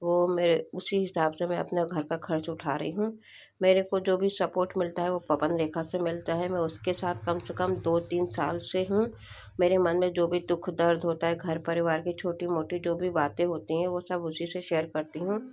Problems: none marked